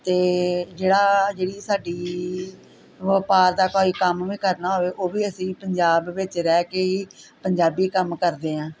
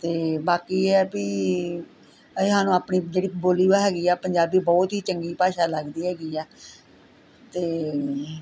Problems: constant background noise, background conversations at intervals